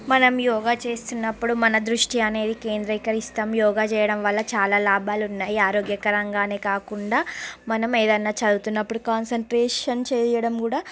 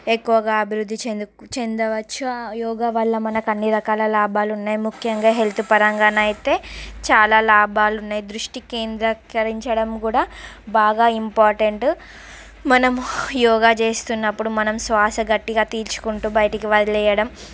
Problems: constant background noise, background conversations at intervals